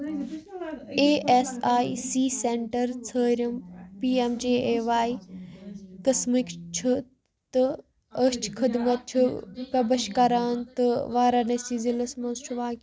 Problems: background sounds at intervals, background conversations at intervals